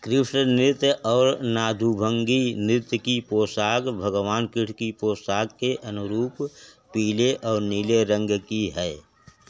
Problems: constant background noise